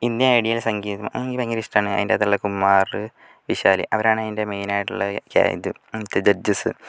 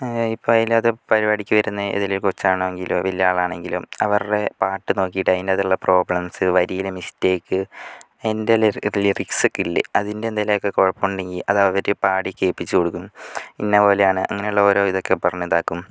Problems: none marked